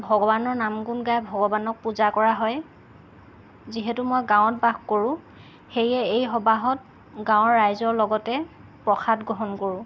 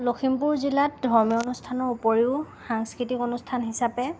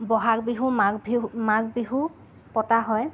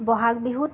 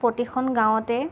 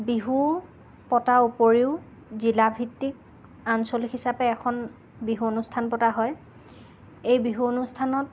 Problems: none marked